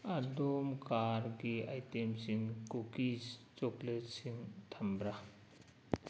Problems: background sounds at intervals